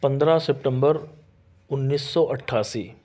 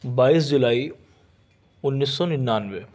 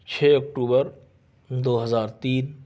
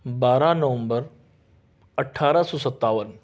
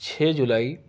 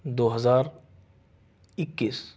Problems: none marked